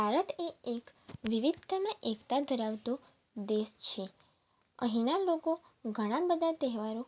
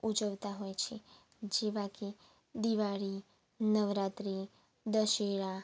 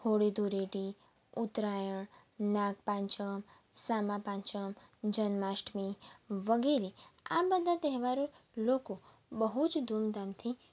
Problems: background sounds at intervals